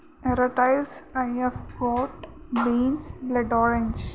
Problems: constant background noise